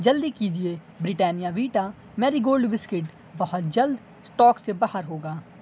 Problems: background sounds at intervals